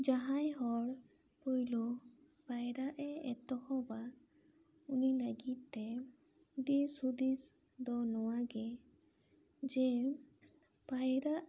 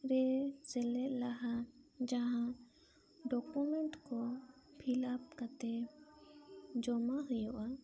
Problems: background conversations at intervals